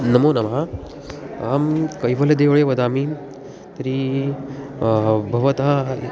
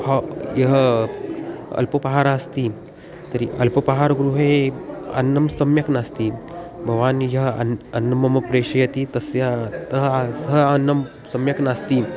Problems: constant background noise, continuous background conversations